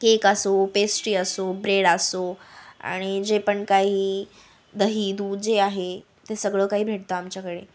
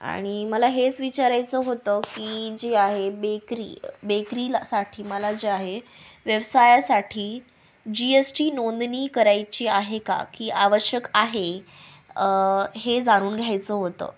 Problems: background sounds at intervals